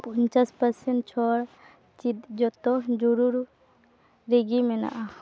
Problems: constant background noise